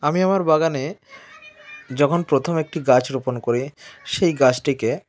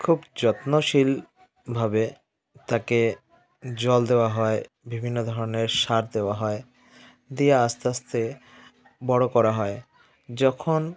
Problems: continuous background conversations